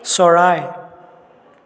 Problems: continuous background conversations, echo